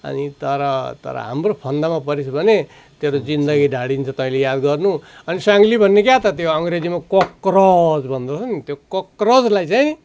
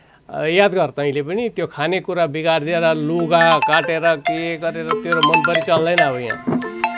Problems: constant background noise